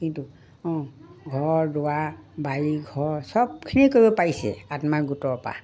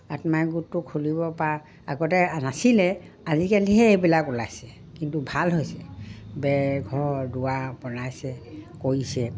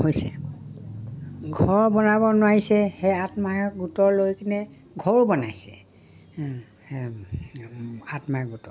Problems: none marked